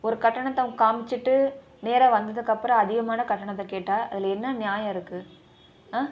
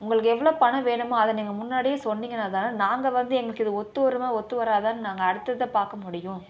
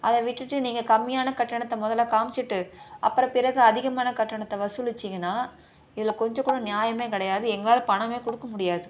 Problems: constant background noise